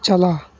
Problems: constant background noise